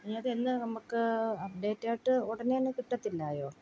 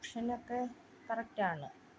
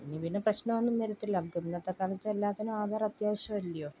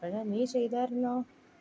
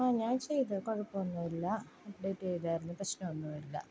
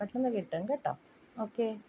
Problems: low volume